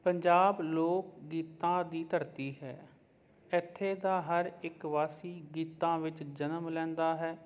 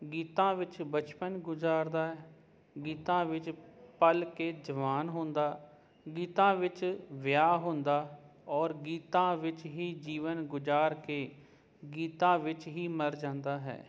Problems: none marked